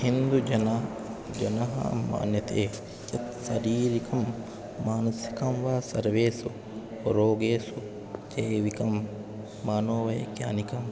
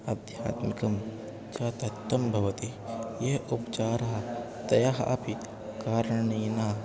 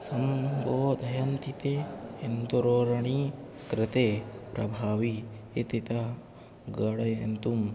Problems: none marked